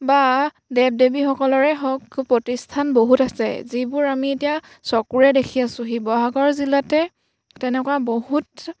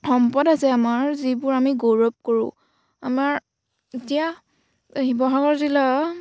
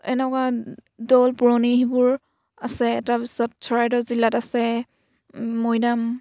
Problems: background sounds at intervals